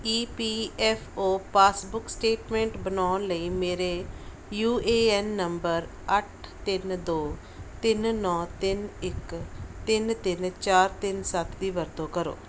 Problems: background sounds at intervals